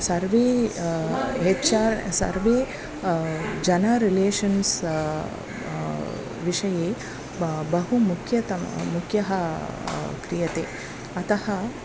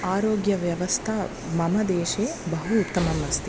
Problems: none marked